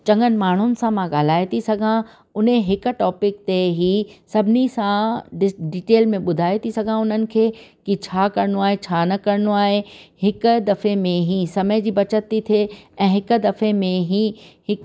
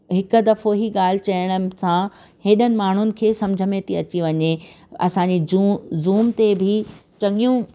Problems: background sounds at intervals